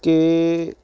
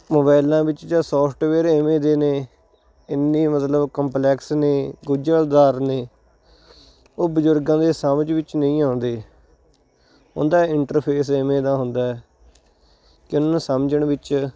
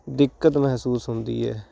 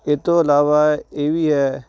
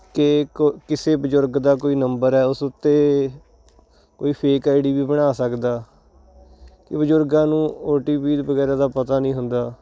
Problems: none marked